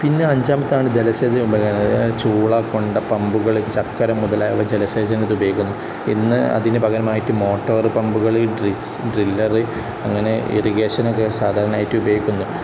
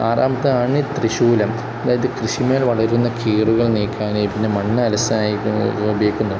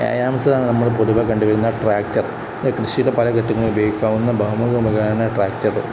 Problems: constant background noise